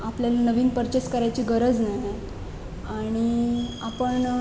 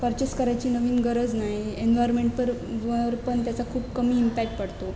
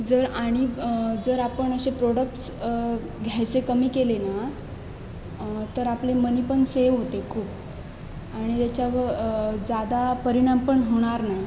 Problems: none marked